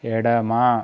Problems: constant background noise